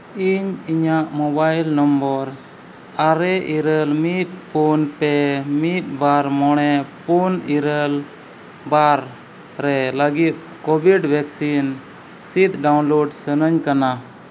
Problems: constant background noise